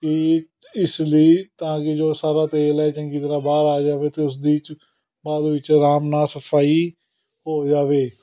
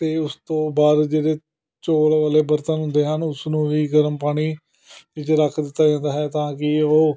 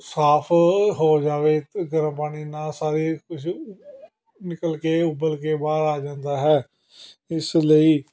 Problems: continuous background conversations